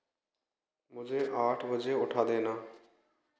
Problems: background sounds at intervals